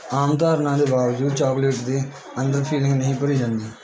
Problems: constant background noise